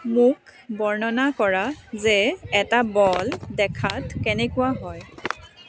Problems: constant background noise, background conversations at intervals